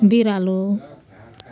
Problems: constant background noise